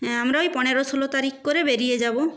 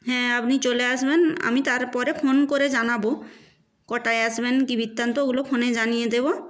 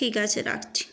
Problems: background sounds at intervals